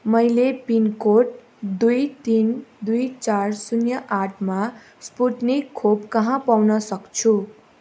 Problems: none marked